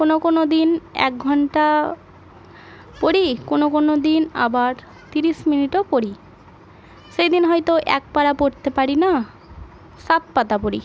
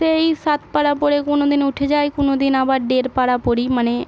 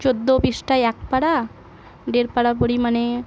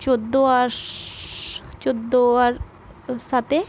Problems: none marked